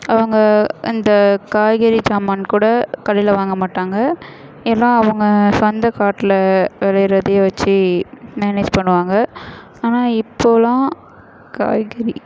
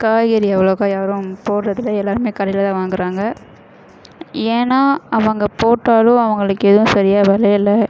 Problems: background sounds at intervals